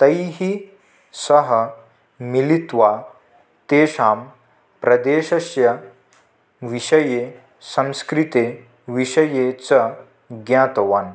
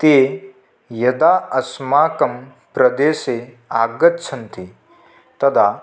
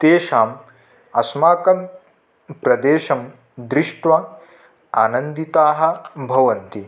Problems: none marked